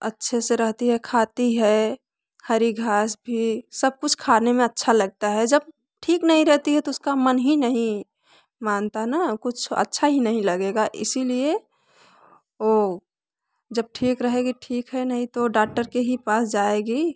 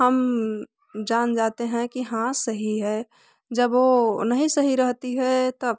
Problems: background conversations at intervals